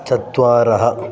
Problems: none marked